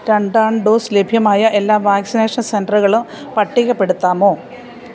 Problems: none marked